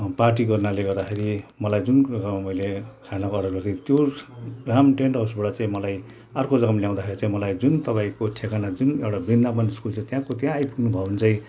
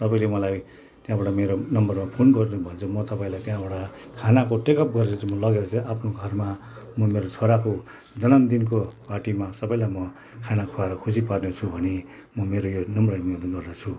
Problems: background sounds at intervals, background conversations at intervals